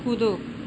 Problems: constant background noise